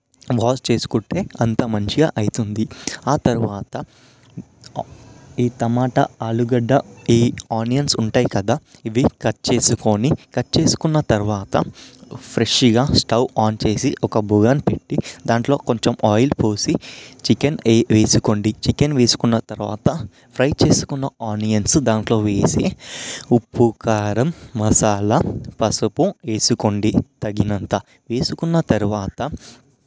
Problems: background sounds at intervals